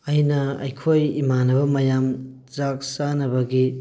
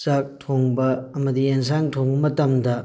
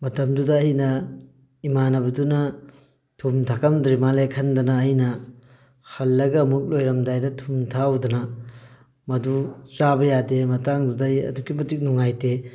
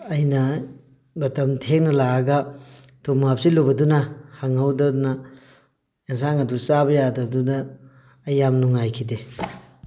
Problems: none marked